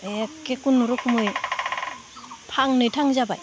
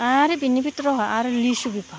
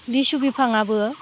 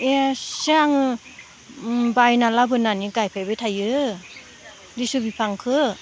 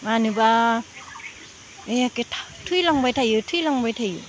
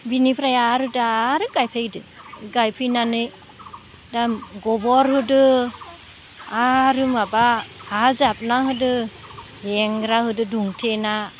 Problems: none marked